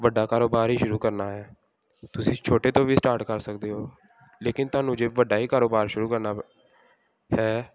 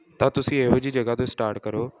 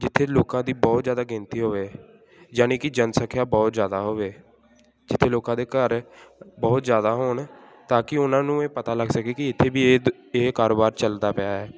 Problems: continuous background conversations